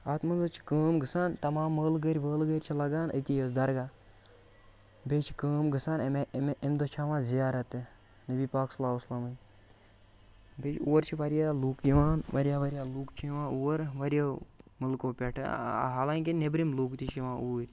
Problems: constant background noise